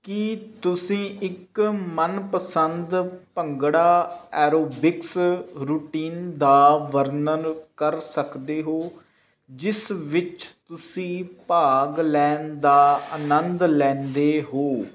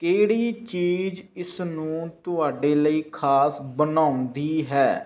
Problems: constant background noise